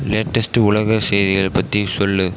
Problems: constant background noise